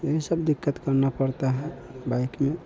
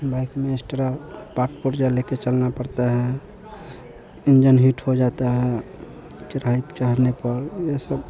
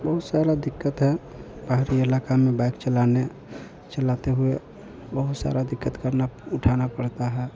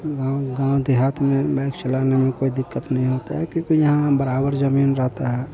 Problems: none marked